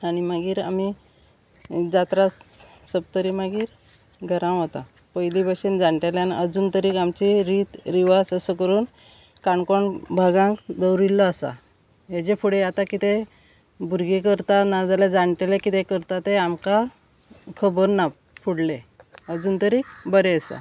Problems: constant background noise